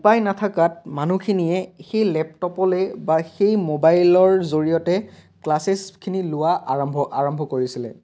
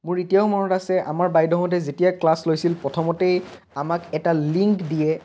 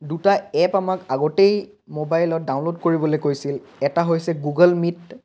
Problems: background sounds at intervals